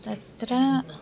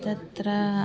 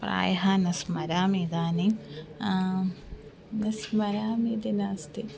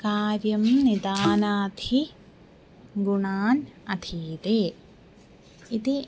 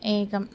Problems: constant background noise